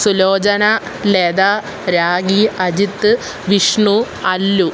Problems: constant background noise